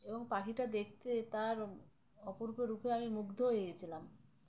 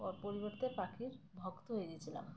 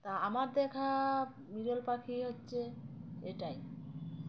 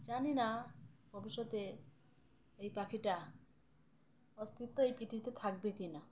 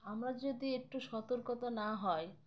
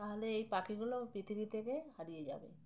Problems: background sounds at intervals